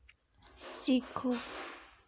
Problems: none marked